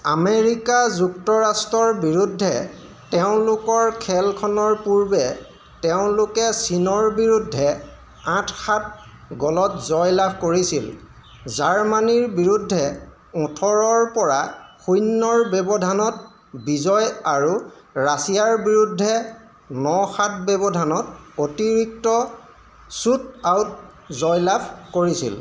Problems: constant background noise, echo